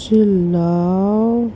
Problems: constant background noise